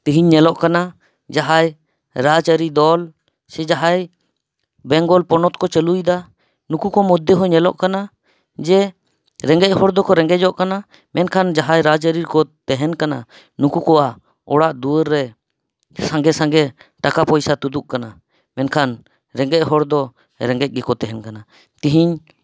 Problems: none marked